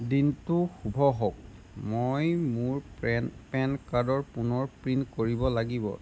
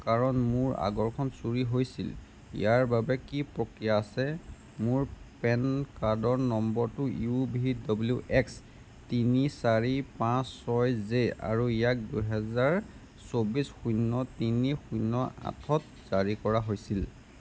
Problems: constant background noise